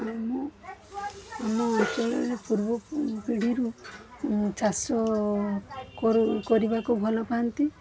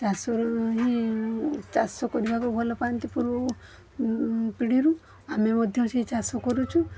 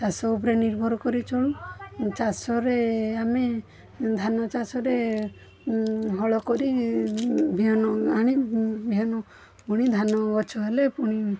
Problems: constant background noise, background conversations at intervals